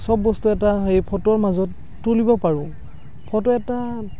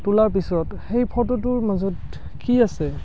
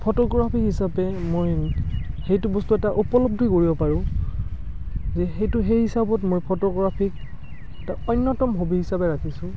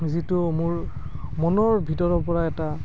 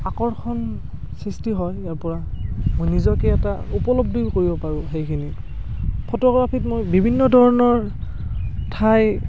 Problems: constant background noise